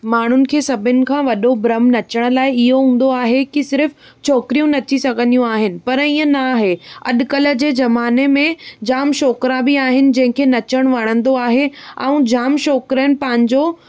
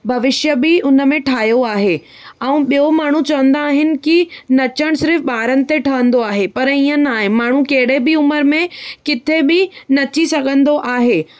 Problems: none marked